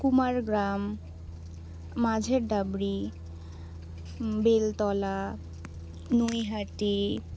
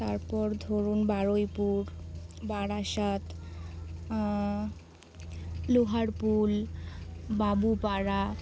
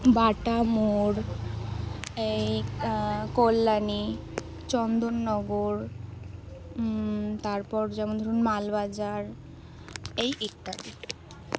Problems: none marked